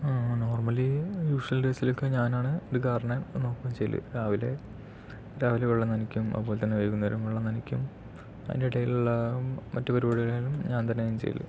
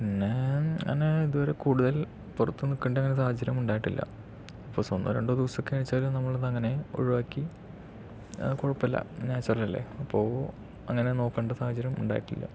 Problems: low volume